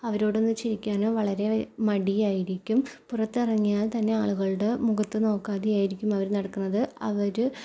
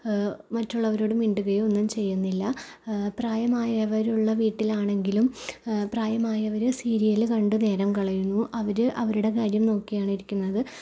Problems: low volume